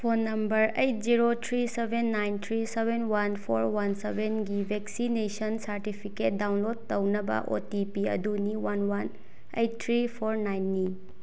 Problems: background sounds at intervals